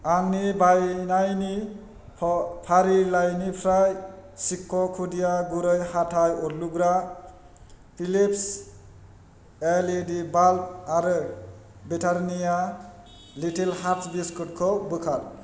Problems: constant background noise